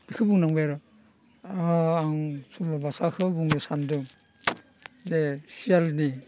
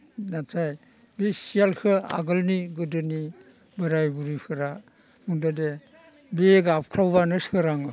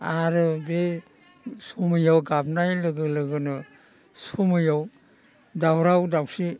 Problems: none marked